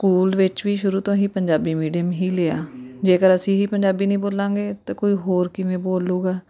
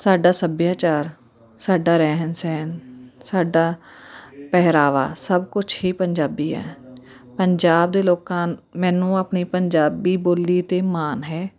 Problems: continuous background conversations